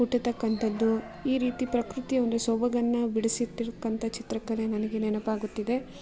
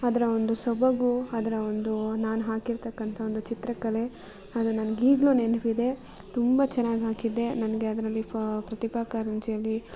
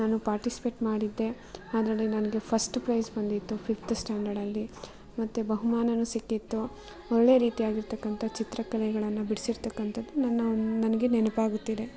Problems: background sounds at intervals